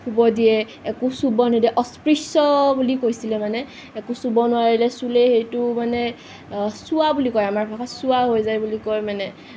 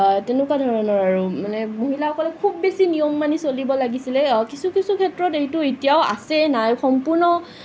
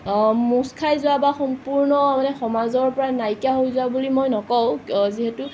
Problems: none marked